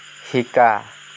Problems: constant background noise